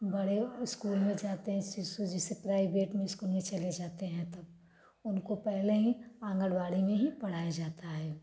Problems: background sounds at intervals, background conversations at intervals